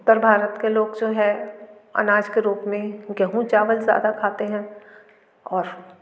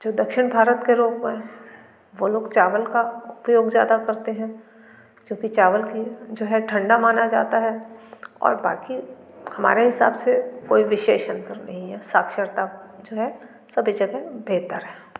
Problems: constant background noise